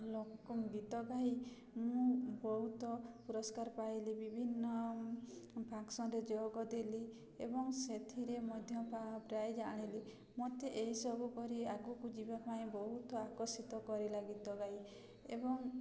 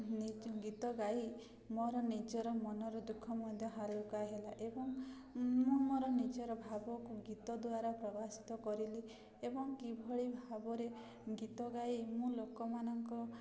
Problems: constant background noise, continuous background conversations